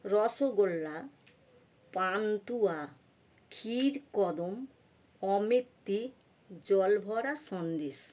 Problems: background sounds at intervals